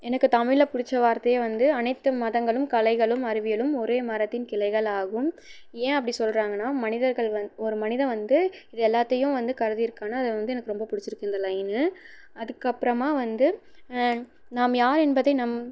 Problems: background sounds at intervals, low volume